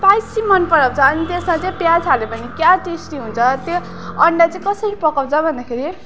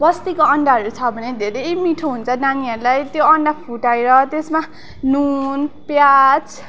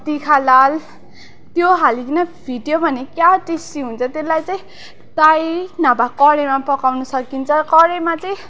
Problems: constant background noise, continuous background conversations